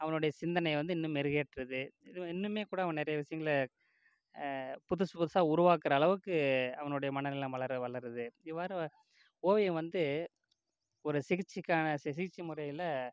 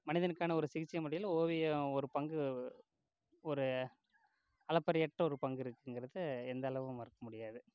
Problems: low volume